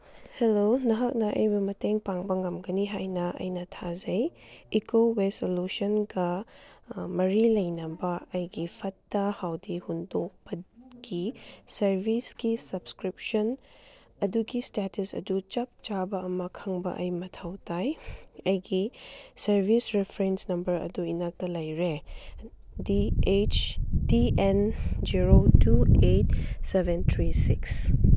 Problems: background sounds at intervals